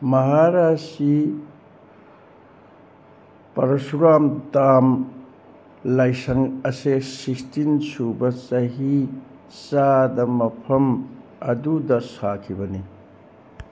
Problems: constant background noise